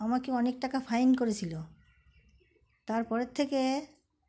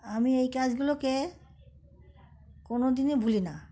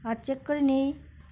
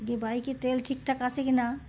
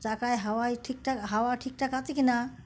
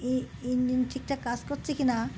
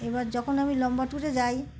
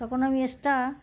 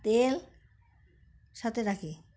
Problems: background sounds at intervals, background conversations at intervals